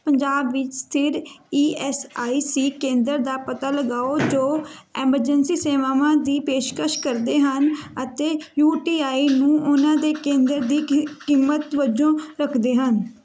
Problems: none marked